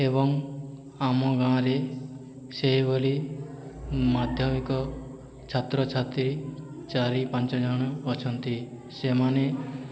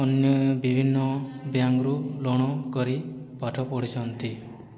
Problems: background conversations at intervals